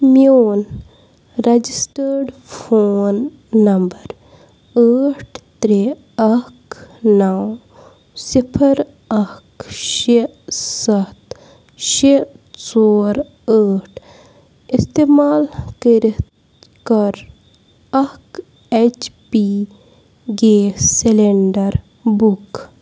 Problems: constant background noise